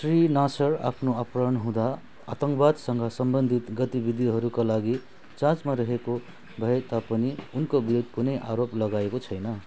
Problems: none marked